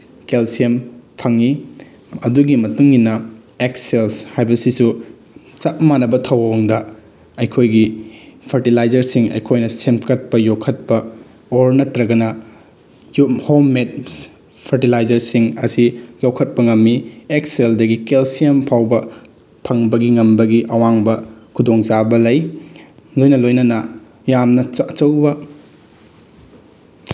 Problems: background sounds at intervals